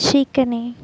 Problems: none marked